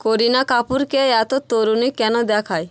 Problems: constant background noise, background conversations at intervals